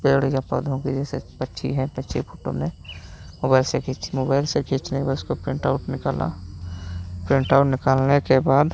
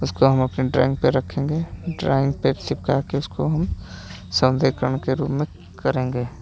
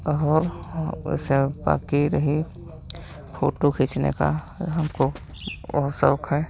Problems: constant background noise, background conversations at intervals